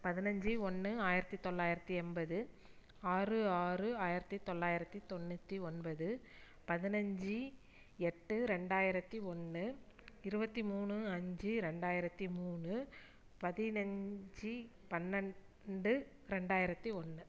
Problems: low volume